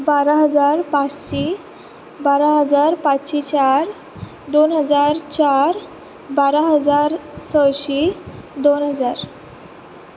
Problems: constant background noise